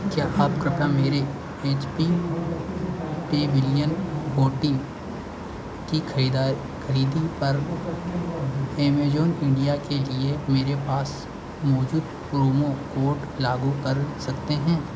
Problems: constant background noise